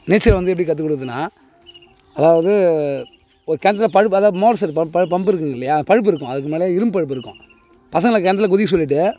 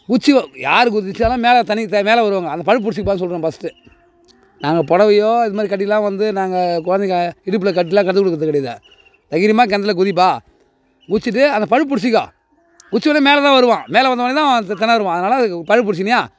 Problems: none marked